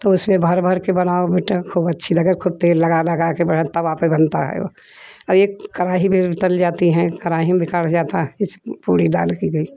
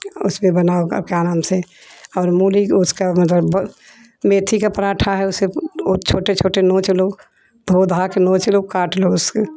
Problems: background conversations at intervals